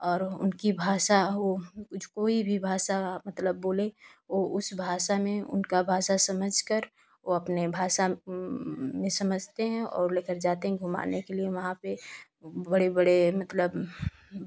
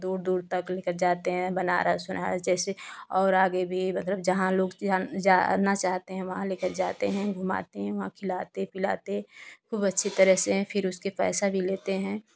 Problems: constant background noise